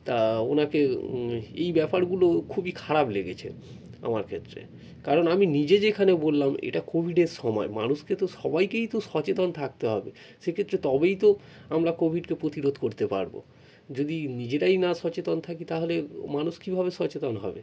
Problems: none marked